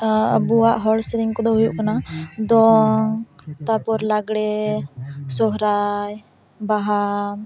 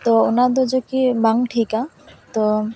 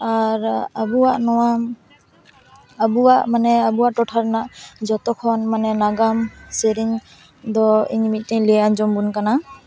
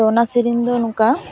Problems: constant background noise, continuous background conversations